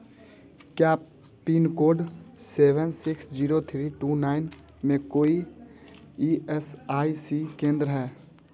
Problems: background sounds at intervals, low volume